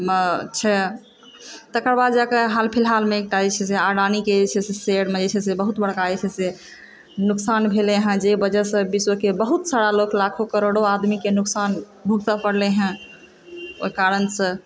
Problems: background sounds at intervals